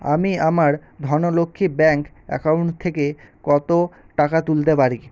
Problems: constant background noise